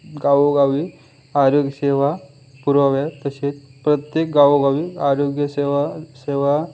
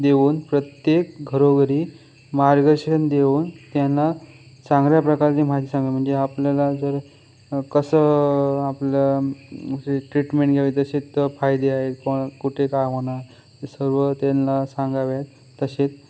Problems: constant background noise